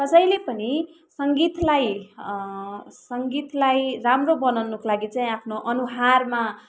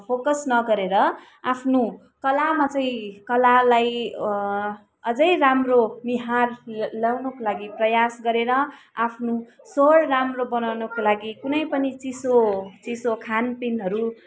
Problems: continuous background conversations